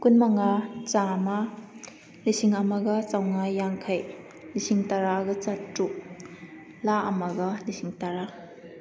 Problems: none marked